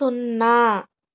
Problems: none marked